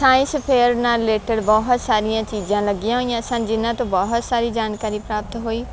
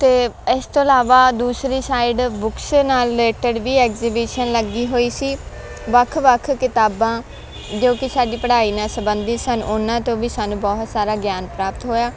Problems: constant background noise